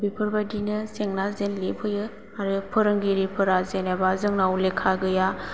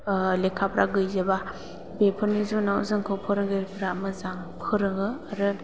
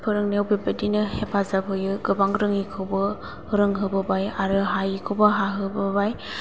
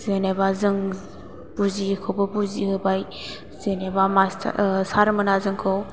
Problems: low volume